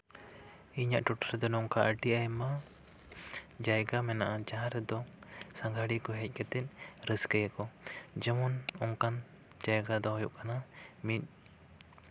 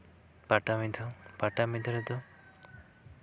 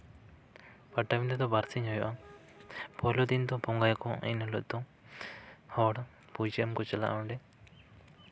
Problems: none marked